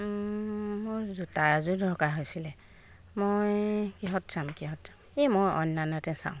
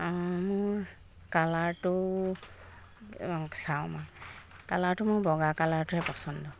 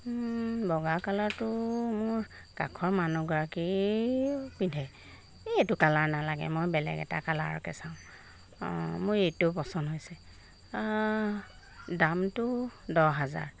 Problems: none marked